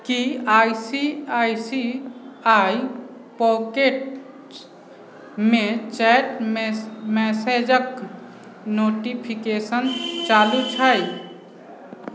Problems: background sounds at intervals, background conversations at intervals